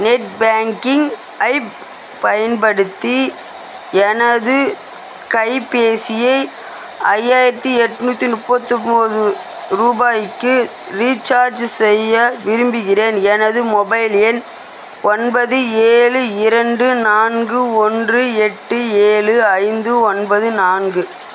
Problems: constant background noise